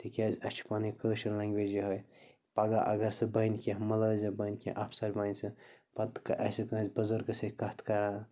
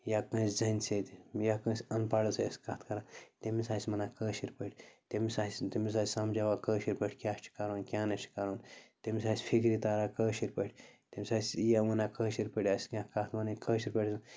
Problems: background sounds at intervals, low volume